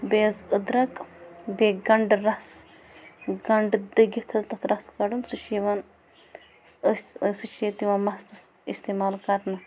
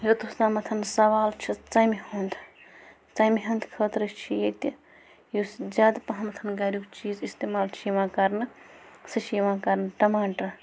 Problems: constant background noise